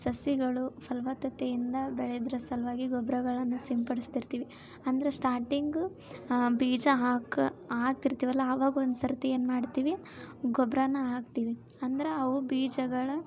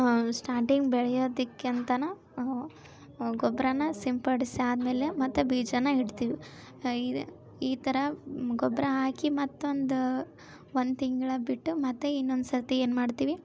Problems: background sounds at intervals